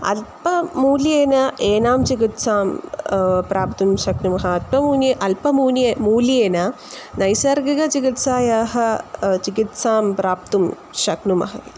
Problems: constant background noise